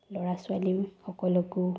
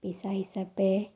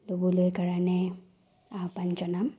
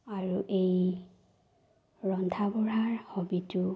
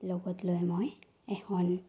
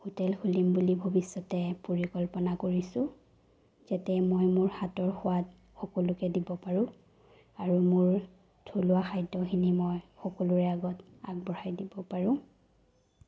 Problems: low volume